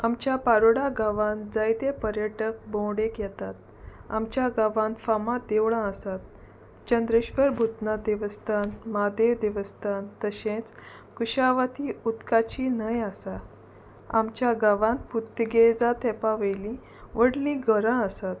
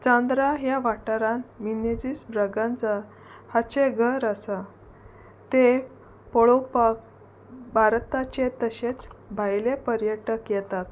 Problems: constant background noise